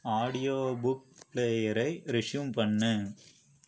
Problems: low volume